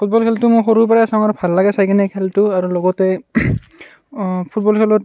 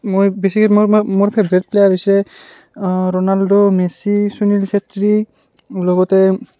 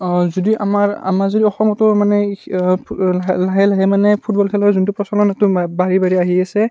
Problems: background sounds at intervals, background conversations at intervals